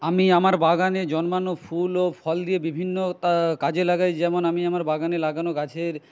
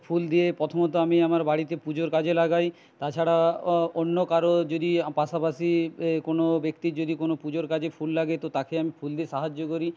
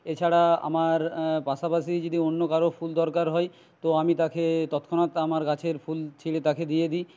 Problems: none marked